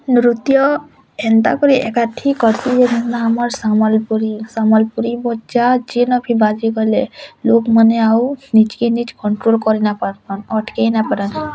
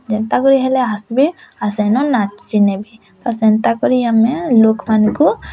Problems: constant background noise